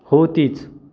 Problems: none marked